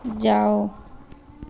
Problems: none marked